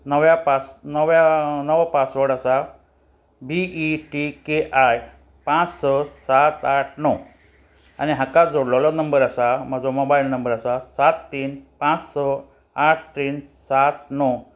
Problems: constant background noise